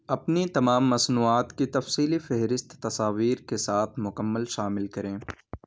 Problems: background sounds at intervals